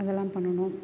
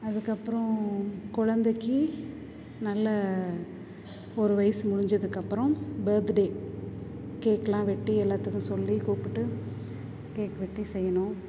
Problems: none marked